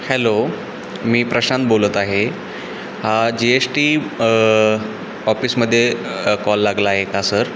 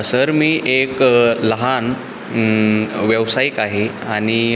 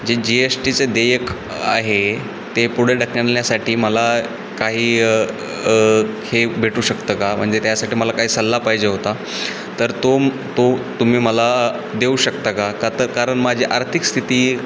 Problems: constant background noise